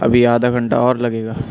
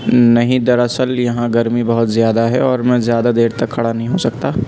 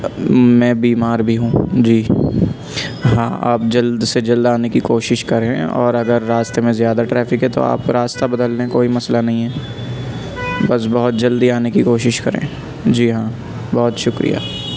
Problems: constant background noise